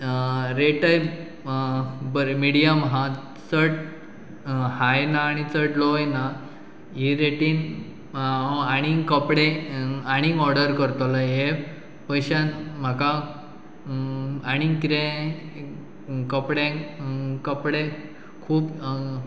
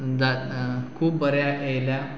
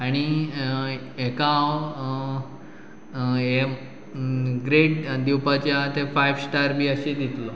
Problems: none marked